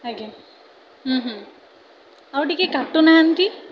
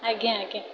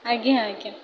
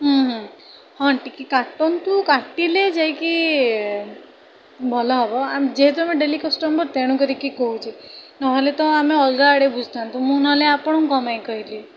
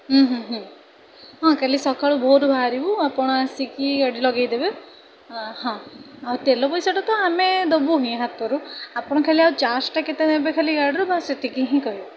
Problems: continuous background conversations